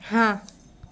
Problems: none marked